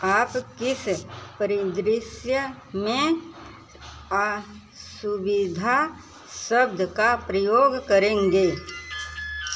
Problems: constant background noise